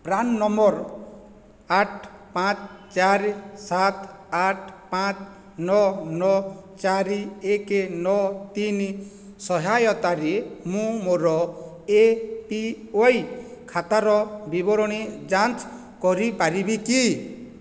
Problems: none marked